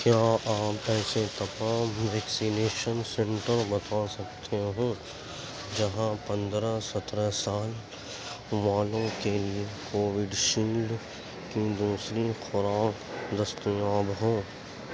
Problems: constant background noise, low volume